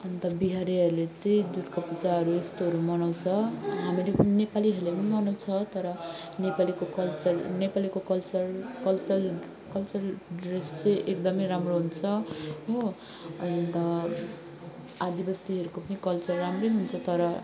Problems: constant background noise, continuous background conversations